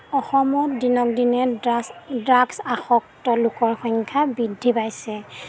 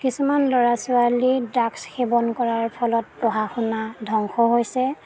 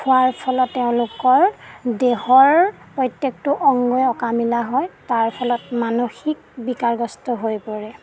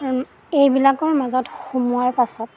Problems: none marked